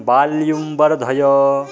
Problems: constant background noise, background conversations at intervals